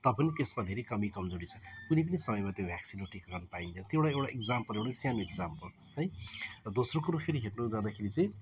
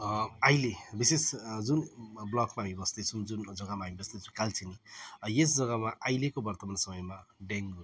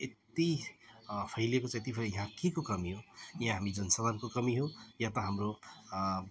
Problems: background sounds at intervals, background conversations at intervals